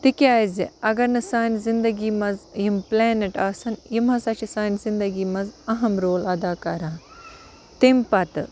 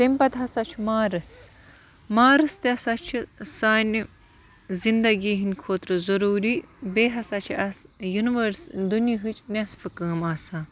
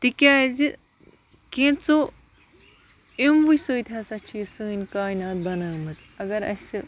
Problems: constant background noise